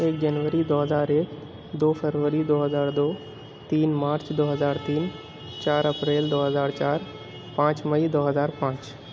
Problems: constant background noise